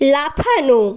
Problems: background conversations at intervals